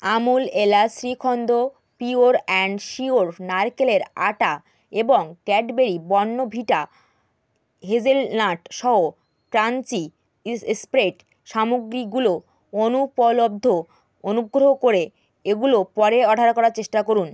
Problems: none marked